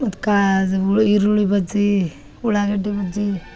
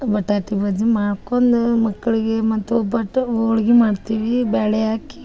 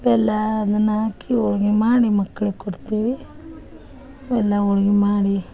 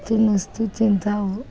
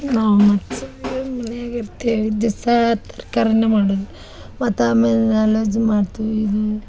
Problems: background sounds at intervals